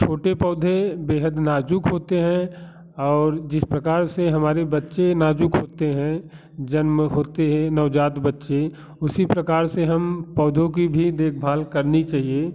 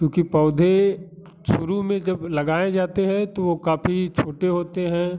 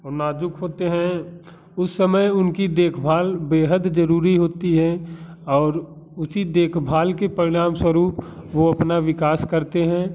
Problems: constant background noise